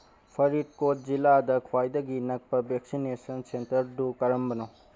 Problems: background sounds at intervals